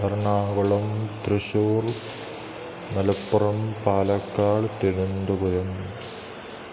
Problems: constant background noise